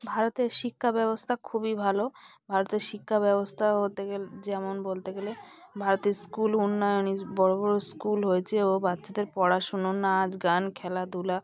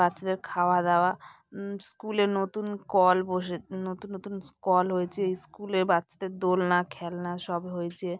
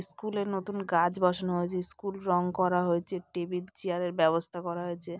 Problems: constant background noise, background conversations at intervals